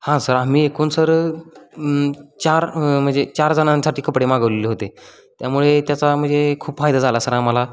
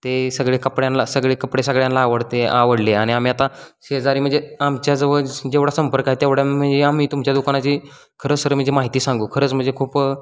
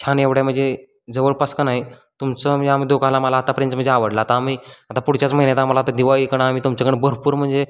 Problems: constant background noise